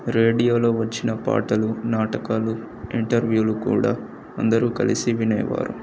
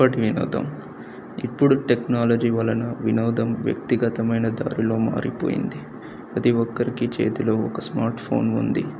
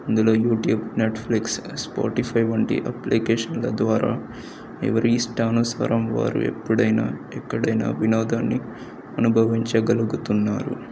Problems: none marked